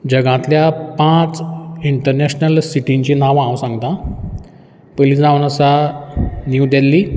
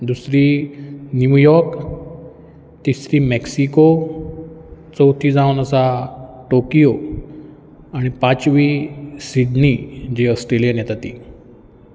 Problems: background sounds at intervals